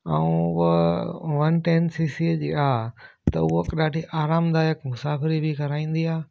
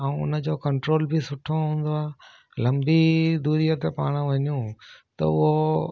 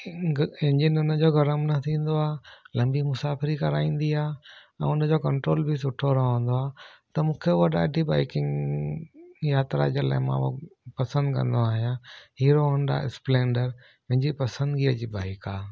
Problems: none marked